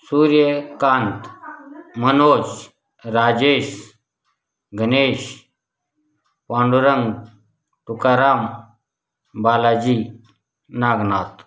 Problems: none marked